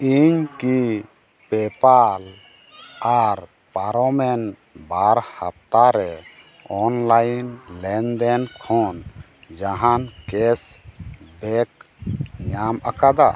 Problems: constant background noise